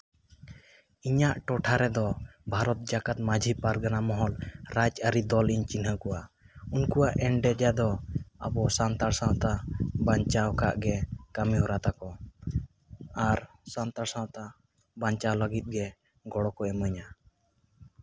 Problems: constant background noise